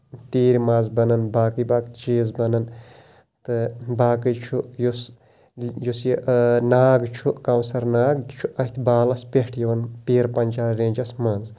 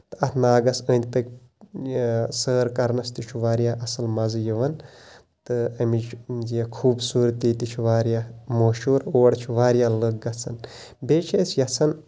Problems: constant background noise